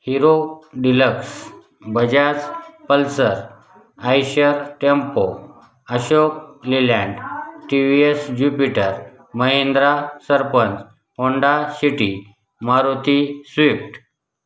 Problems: constant background noise, background conversations at intervals